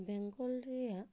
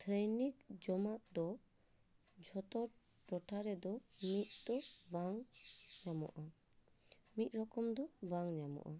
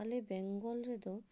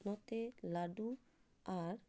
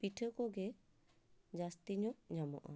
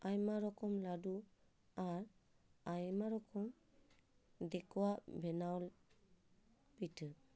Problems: background sounds at intervals